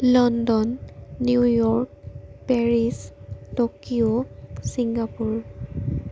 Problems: constant background noise